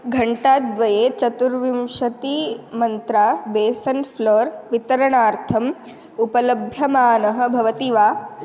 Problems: none marked